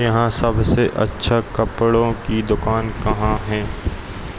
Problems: none marked